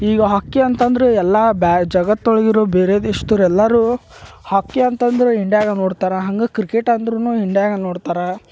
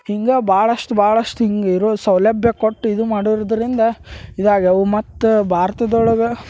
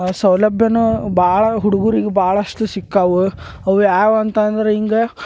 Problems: background sounds at intervals